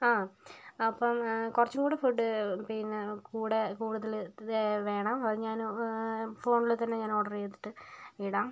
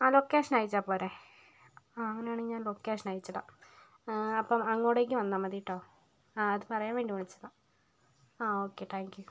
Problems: low volume